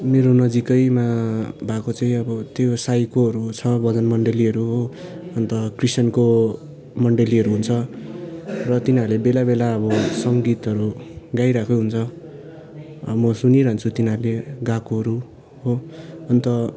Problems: background sounds at intervals